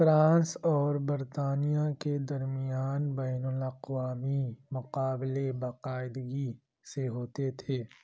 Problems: low volume